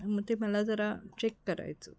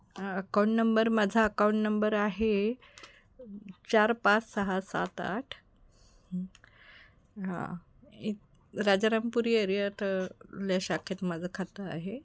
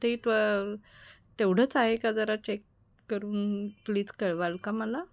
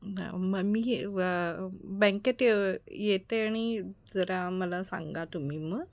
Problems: background sounds at intervals